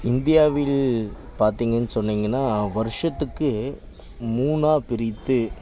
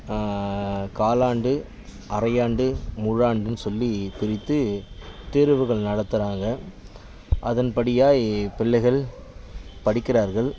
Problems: continuous background conversations